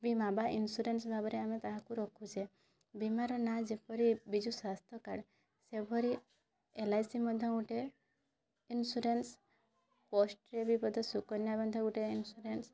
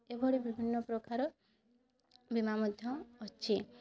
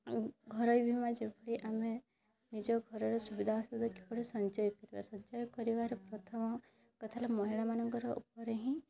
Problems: constant background noise, continuous background conversations